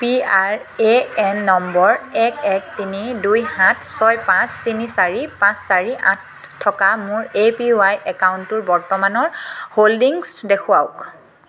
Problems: none marked